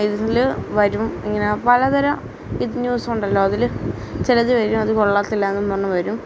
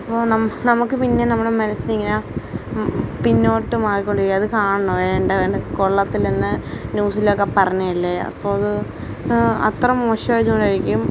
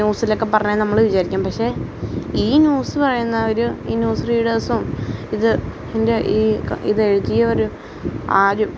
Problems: constant background noise